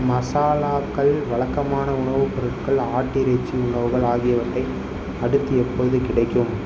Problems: background sounds at intervals